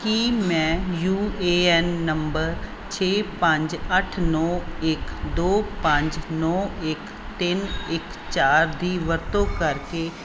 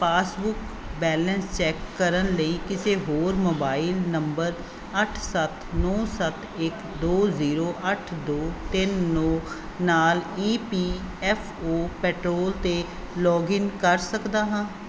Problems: constant background noise